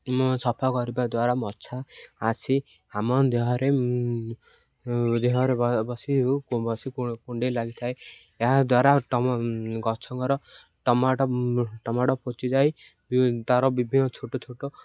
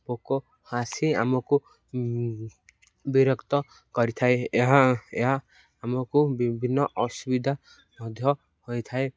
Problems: none marked